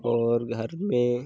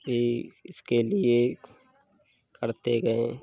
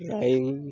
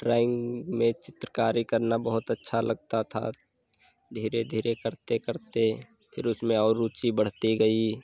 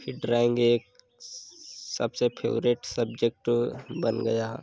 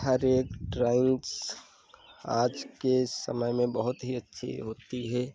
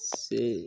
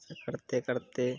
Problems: constant background noise